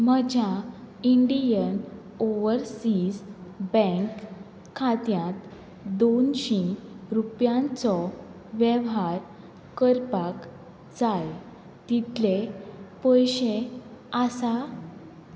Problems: none marked